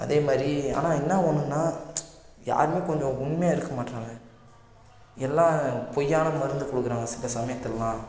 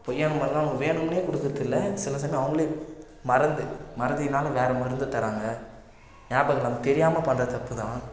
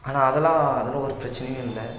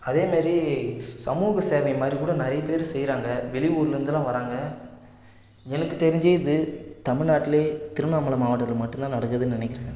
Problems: constant background noise, low volume